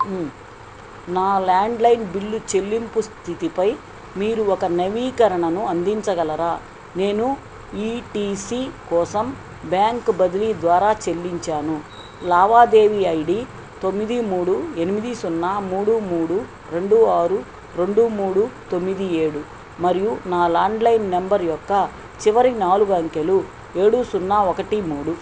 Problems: constant background noise